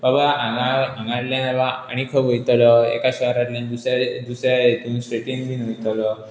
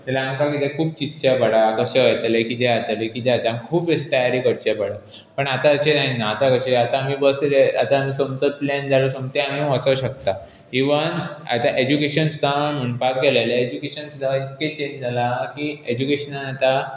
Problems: background sounds at intervals